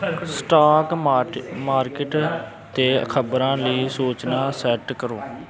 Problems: background conversations at intervals